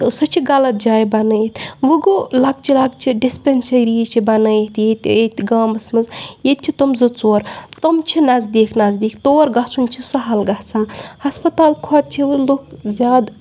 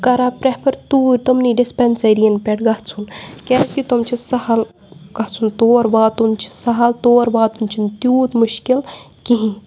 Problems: background sounds at intervals